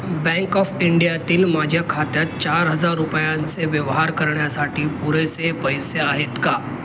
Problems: constant background noise